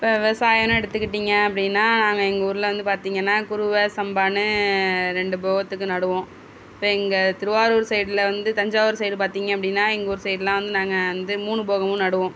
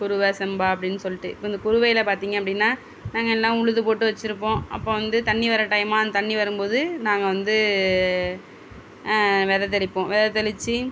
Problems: none marked